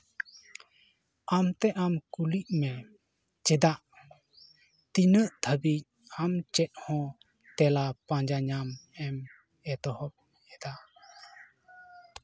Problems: background sounds at intervals